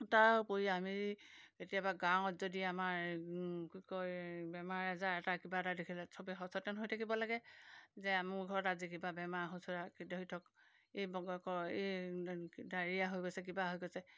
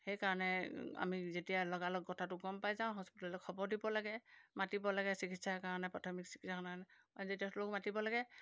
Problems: none marked